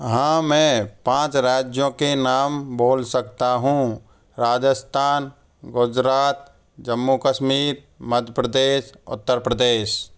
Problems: constant background noise